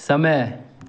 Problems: constant background noise